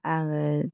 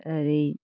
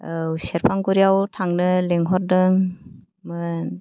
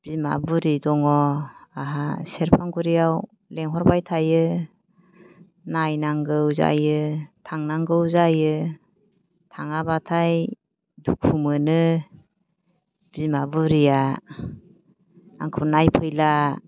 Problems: low volume